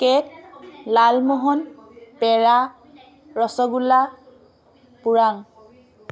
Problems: none marked